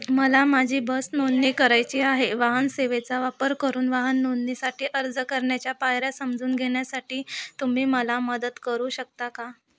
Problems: background sounds at intervals